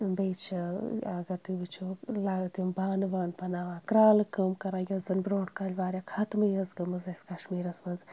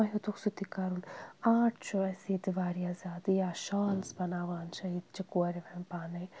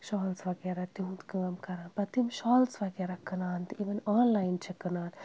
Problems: background sounds at intervals